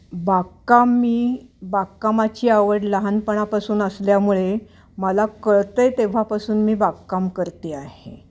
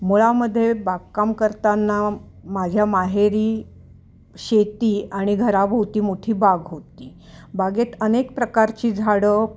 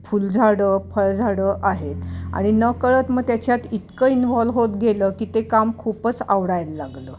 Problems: none marked